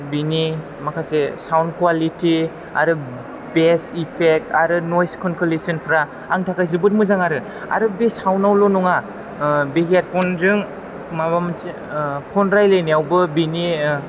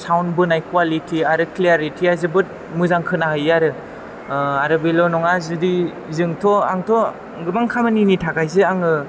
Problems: background sounds at intervals